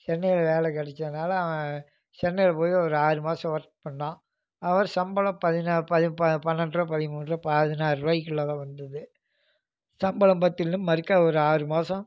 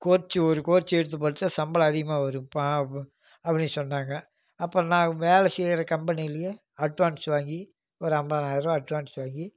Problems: none marked